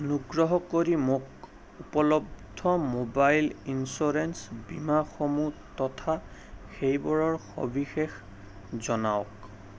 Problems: none marked